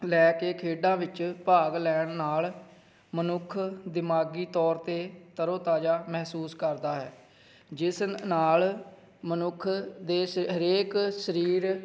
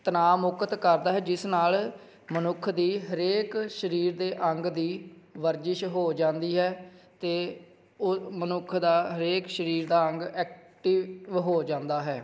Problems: background sounds at intervals